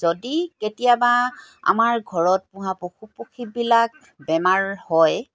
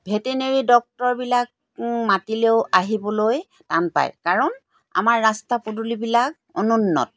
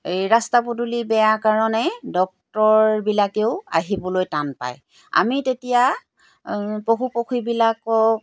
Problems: background sounds at intervals